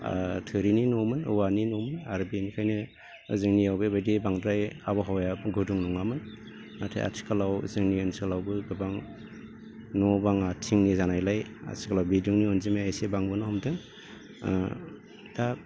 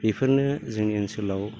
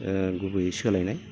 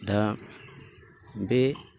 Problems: constant background noise